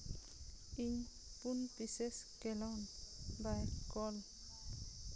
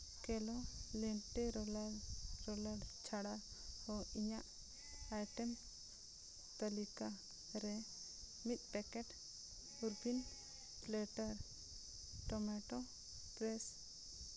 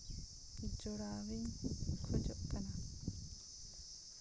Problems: constant background noise, low volume